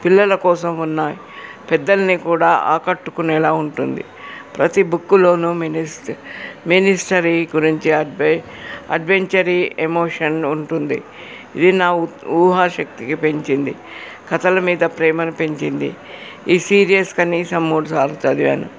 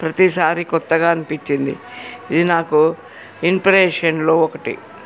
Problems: background conversations at intervals